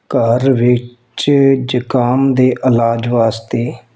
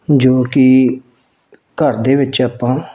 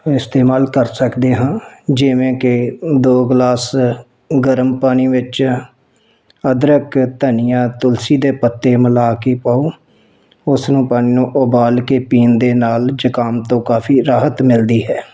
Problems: background sounds at intervals